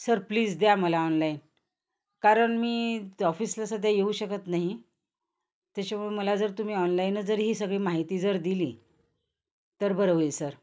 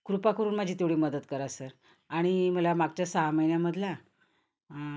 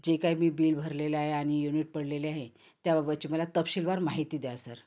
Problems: constant background noise, background conversations at intervals